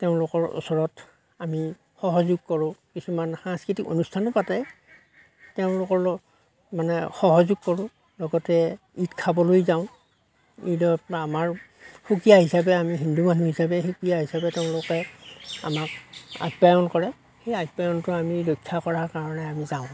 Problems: none marked